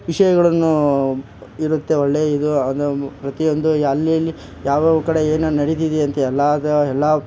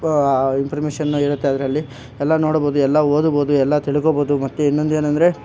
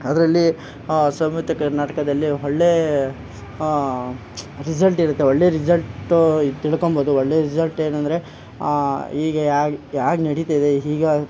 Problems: none marked